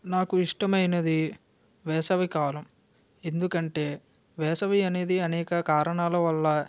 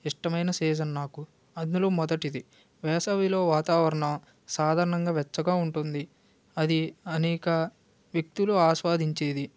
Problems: none marked